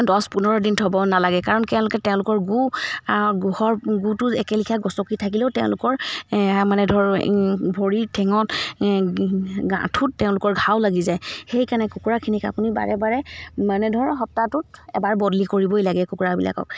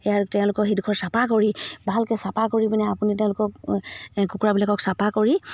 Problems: background sounds at intervals